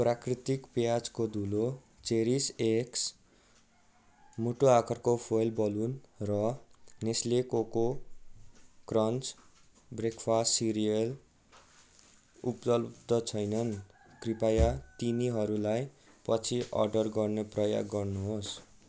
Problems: background sounds at intervals